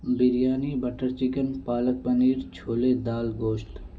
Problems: low volume